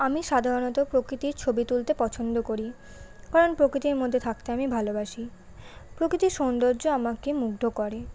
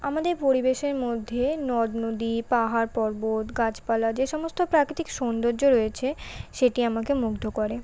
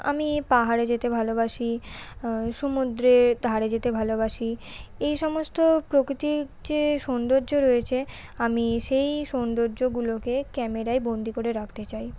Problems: none marked